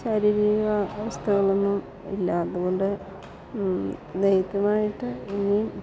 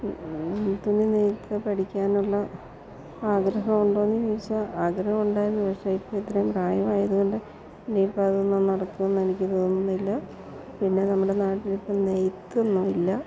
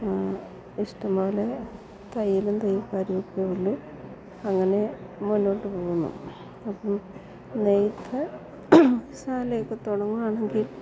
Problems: low volume